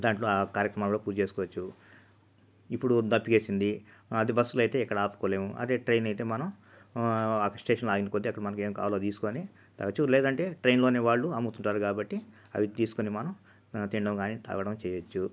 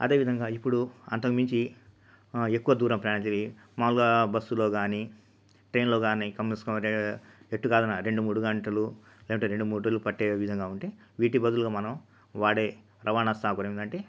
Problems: none marked